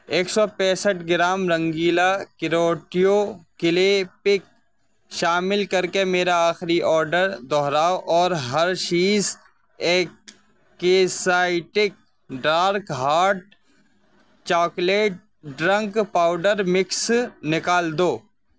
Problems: constant background noise